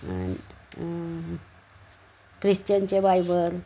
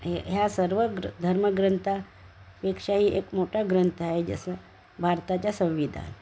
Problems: constant background noise